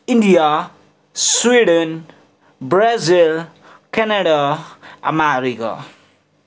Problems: background sounds at intervals